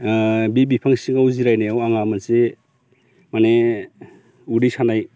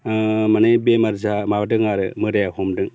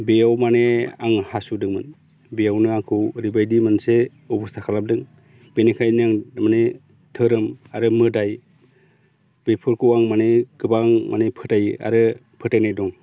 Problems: constant background noise